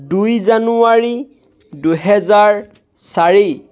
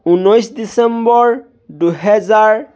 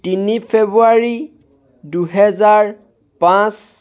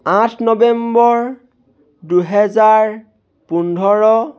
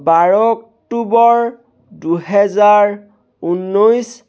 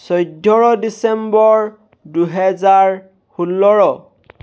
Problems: none marked